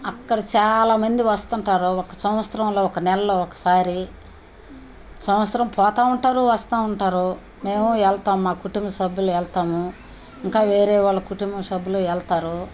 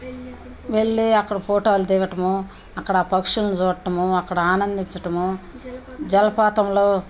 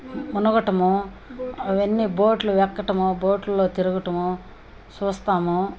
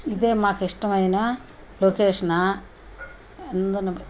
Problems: none marked